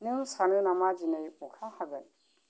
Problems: low volume